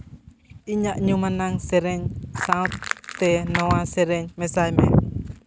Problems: constant background noise